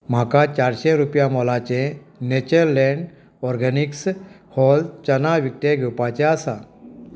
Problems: background sounds at intervals